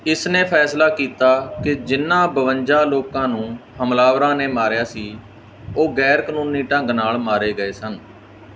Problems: background sounds at intervals